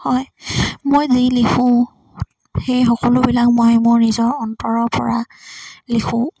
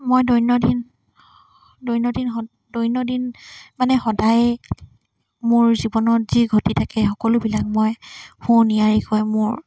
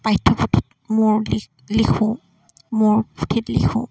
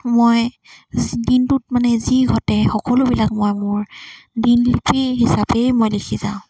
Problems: constant background noise